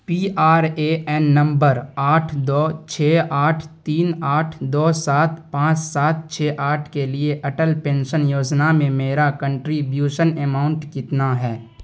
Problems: none marked